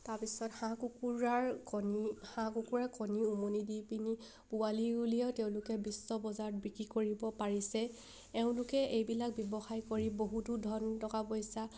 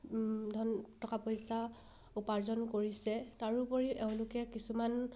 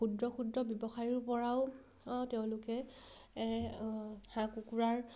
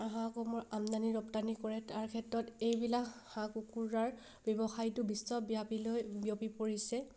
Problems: background sounds at intervals